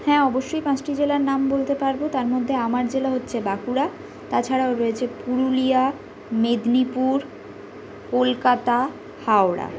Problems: background sounds at intervals